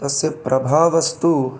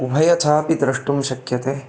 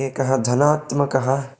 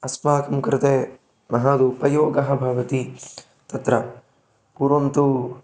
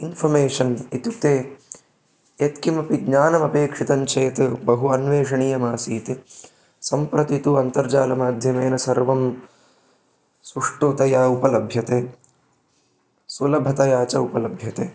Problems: background sounds at intervals